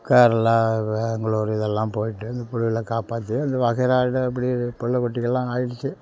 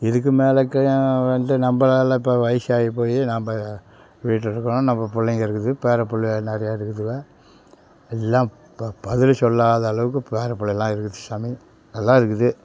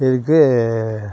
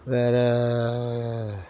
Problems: background sounds at intervals, background conversations at intervals